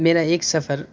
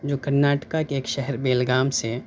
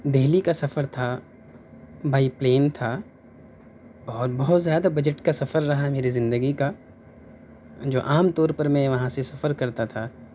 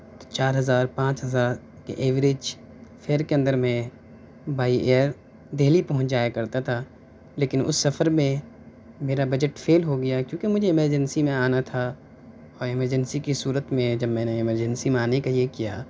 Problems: background sounds at intervals